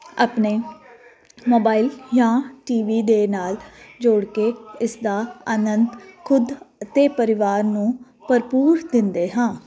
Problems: none marked